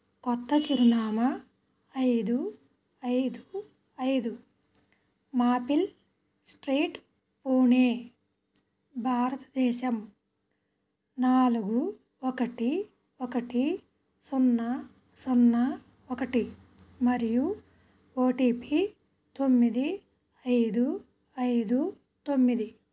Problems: background sounds at intervals